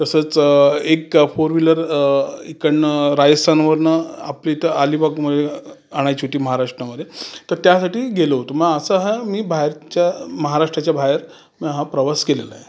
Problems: none marked